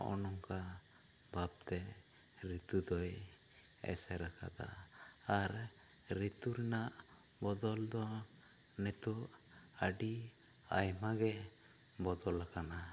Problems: low volume